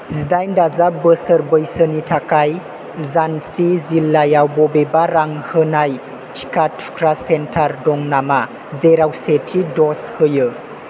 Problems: none marked